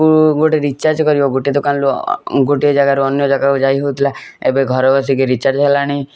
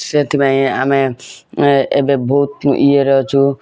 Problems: constant background noise